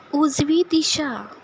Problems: background sounds at intervals